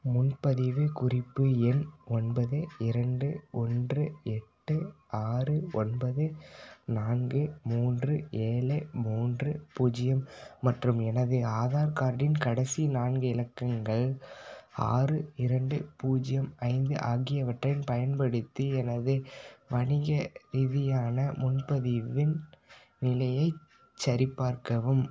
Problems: none marked